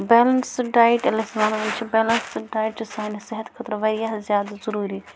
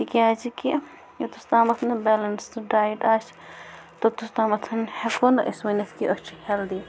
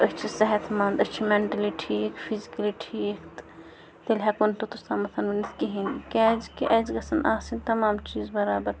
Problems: background sounds at intervals